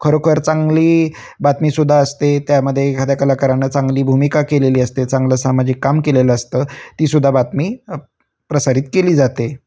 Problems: constant background noise, background conversations at intervals